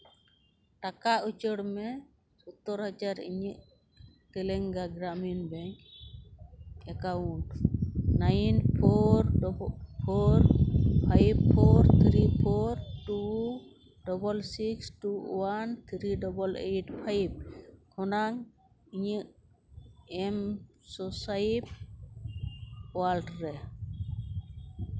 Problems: background sounds at intervals